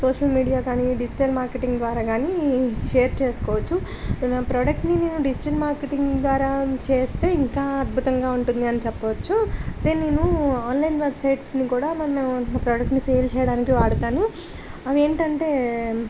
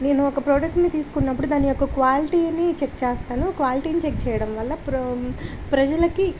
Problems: constant background noise